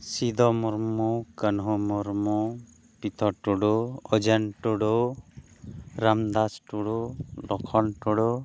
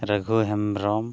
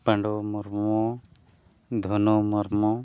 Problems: none marked